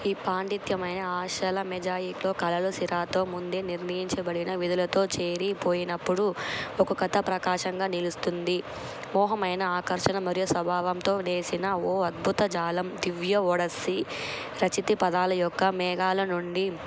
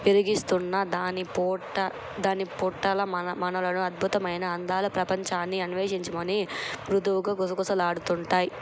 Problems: constant background noise